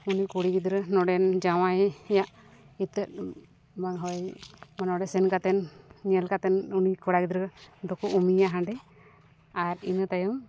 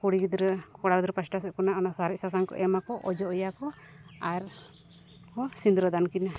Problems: none marked